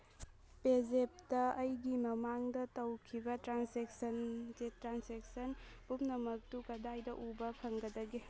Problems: background sounds at intervals